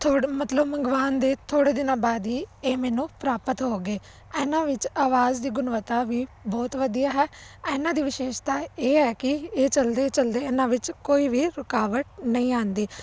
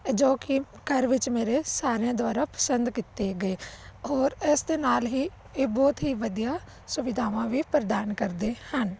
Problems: none marked